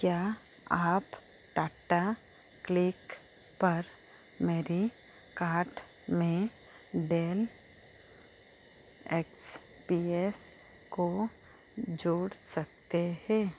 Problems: low volume